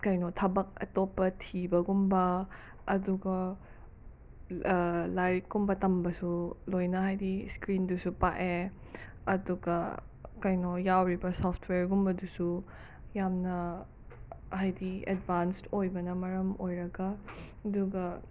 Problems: background sounds at intervals